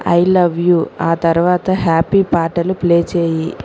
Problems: constant background noise